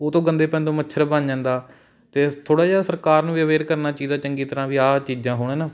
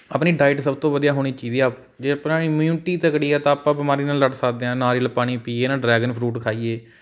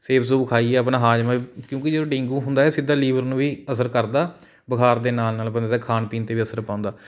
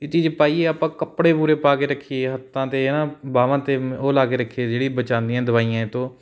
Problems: background sounds at intervals